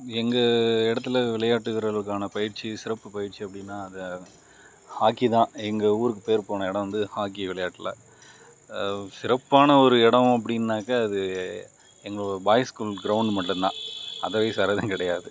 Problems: background sounds at intervals